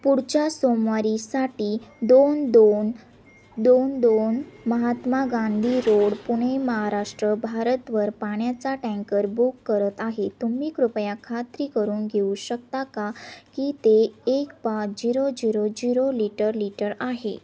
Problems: none marked